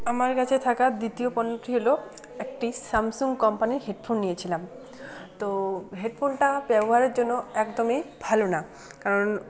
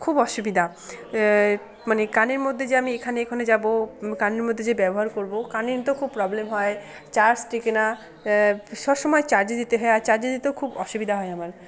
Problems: constant background noise, continuous background conversations